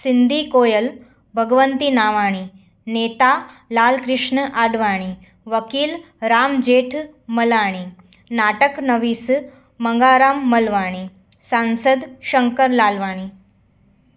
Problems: constant background noise, echo